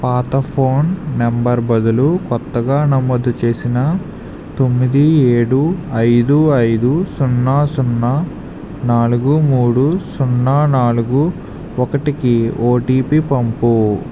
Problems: constant background noise